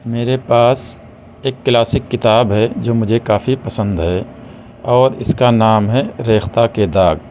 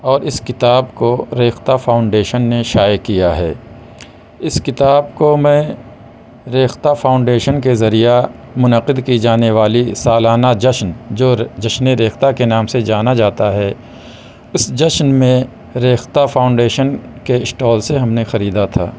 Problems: constant background noise